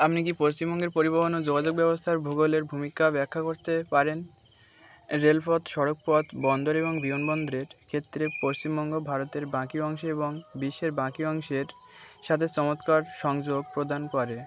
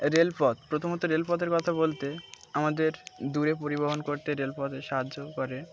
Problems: constant background noise